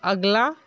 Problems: background sounds at intervals